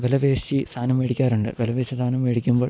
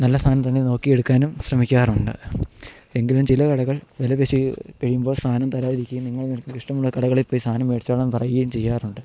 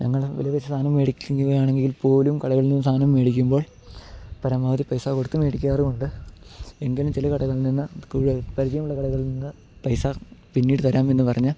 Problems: none marked